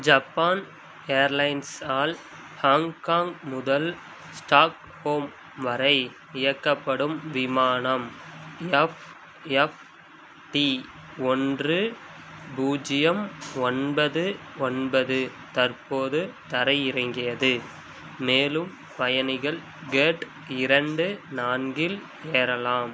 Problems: constant background noise